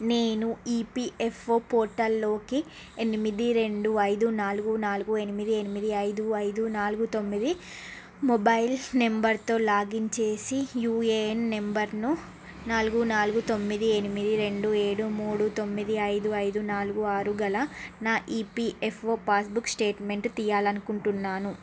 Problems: constant background noise